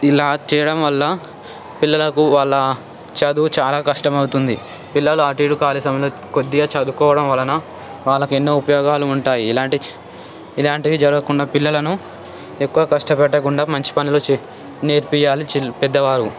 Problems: constant background noise, background conversations at intervals